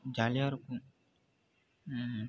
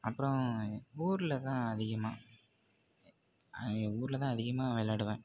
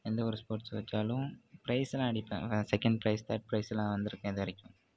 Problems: background sounds at intervals